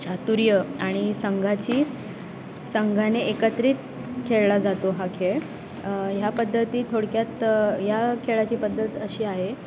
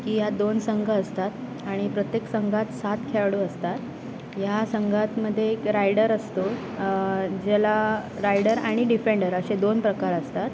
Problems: constant background noise